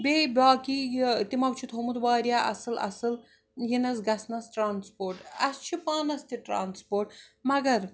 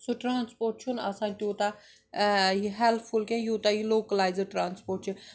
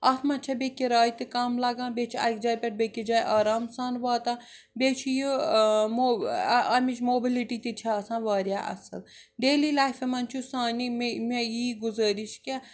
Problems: background sounds at intervals